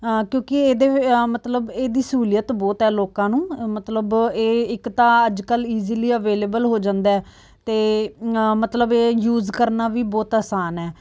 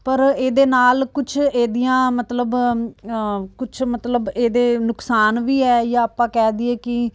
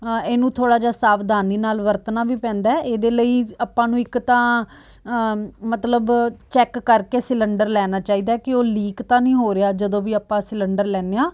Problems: background sounds at intervals